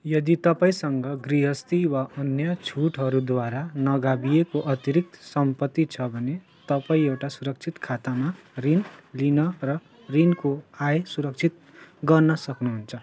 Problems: constant background noise, background conversations at intervals